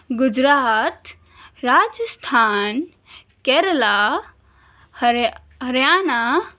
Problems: none marked